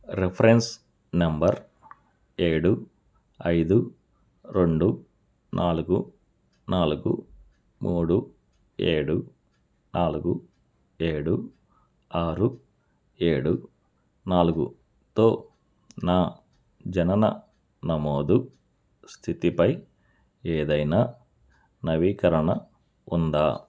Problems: none marked